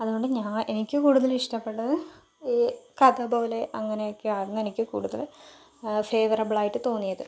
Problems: low volume